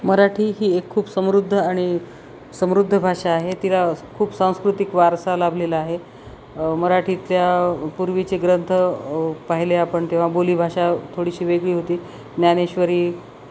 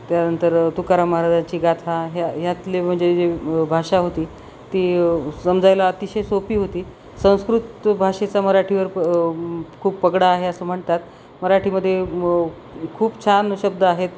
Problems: none marked